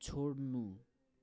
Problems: none marked